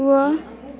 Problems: background sounds at intervals